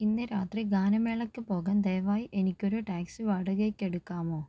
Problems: low volume